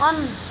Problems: none marked